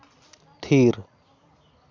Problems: constant background noise